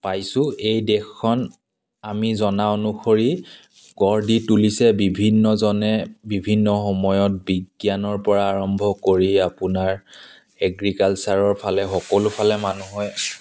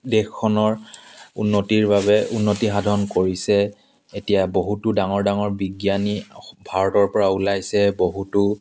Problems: constant background noise